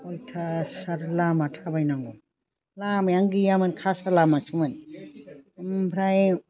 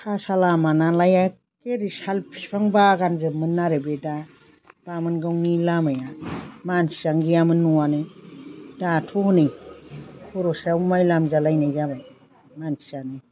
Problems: constant background noise